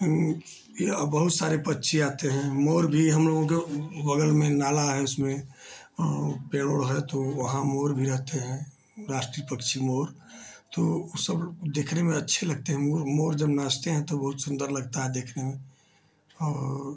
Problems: low volume